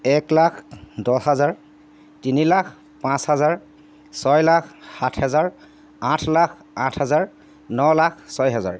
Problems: constant background noise